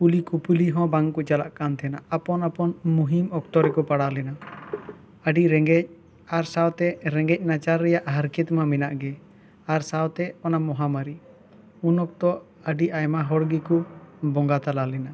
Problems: none marked